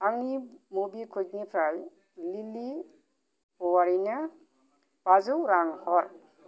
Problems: none marked